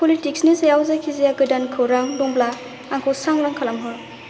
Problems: constant background noise